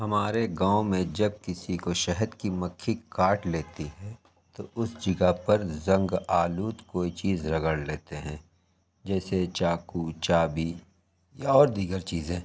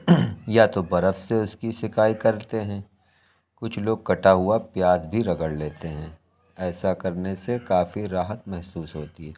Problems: none marked